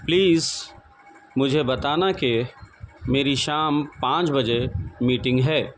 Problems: none marked